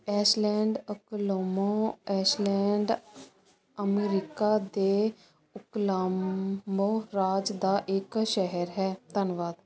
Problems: constant background noise